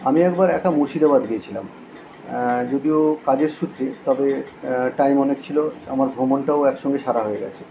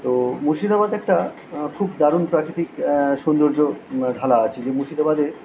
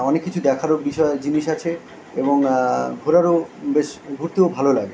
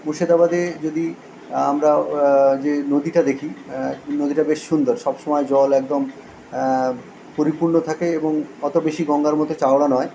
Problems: none marked